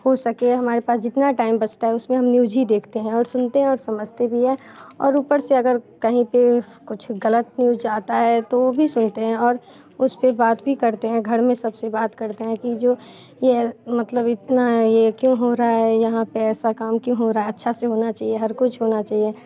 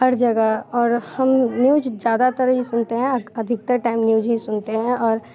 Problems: constant background noise, continuous background conversations